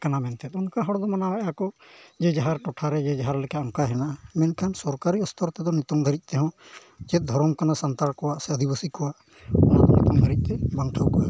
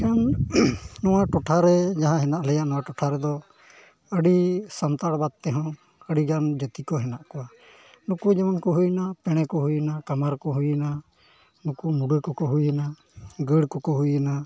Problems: none marked